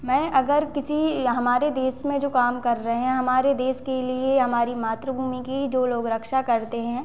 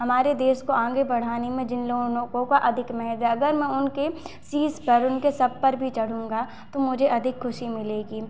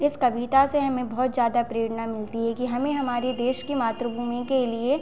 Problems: constant background noise, echo